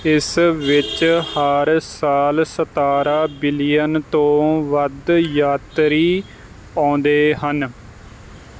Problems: none marked